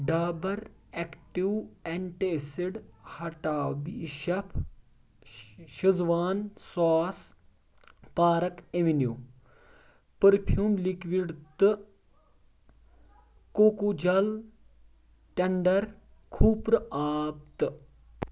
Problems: none marked